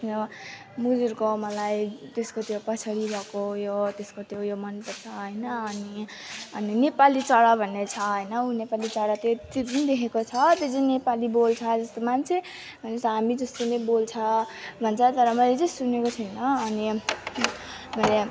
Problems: constant background noise